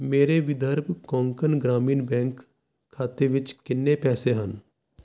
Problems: constant background noise